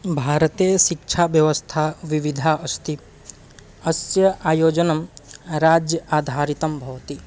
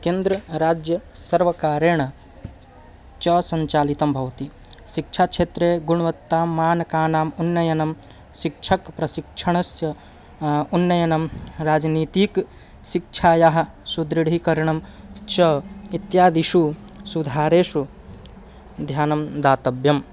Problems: constant background noise